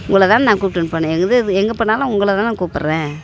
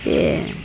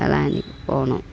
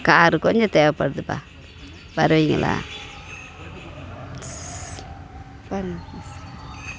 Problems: background sounds at intervals